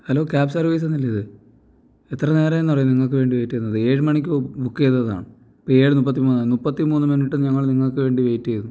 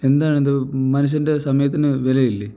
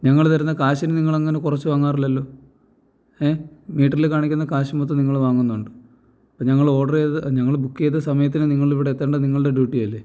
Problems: none marked